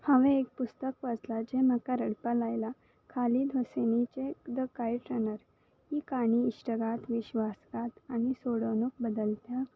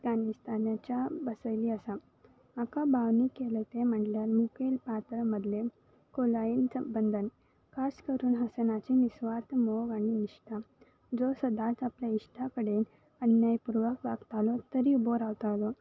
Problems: background sounds at intervals